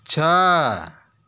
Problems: none marked